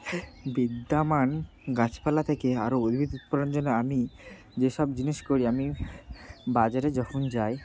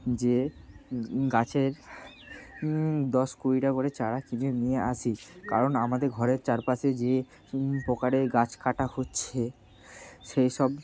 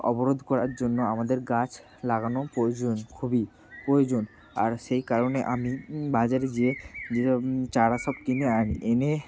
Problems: constant background noise